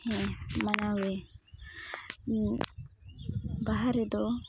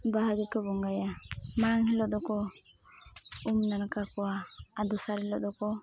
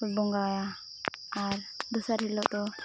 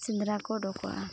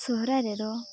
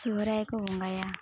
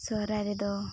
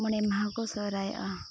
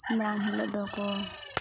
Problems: none marked